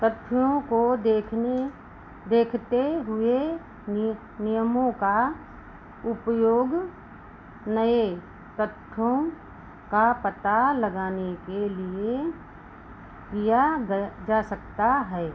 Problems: constant background noise